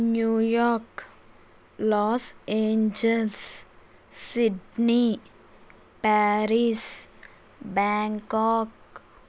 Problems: constant background noise